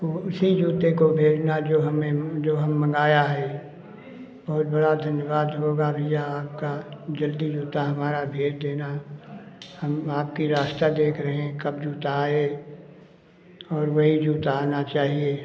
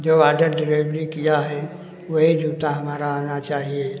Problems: constant background noise